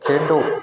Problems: background conversations at intervals